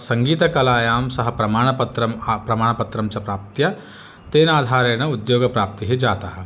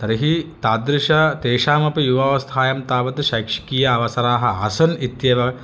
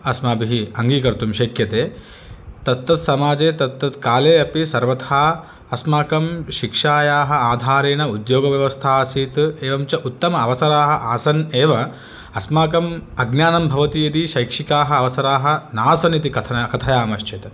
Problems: none marked